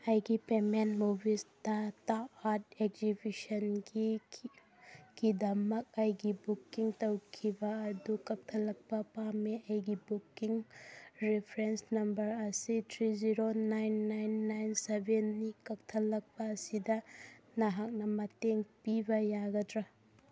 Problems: none marked